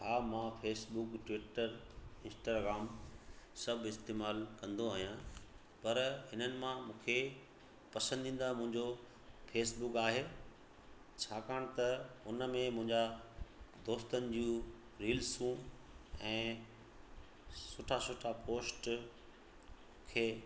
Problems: constant background noise, echo